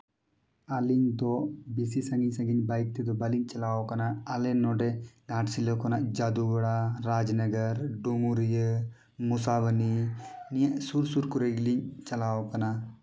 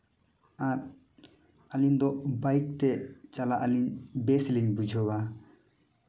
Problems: none marked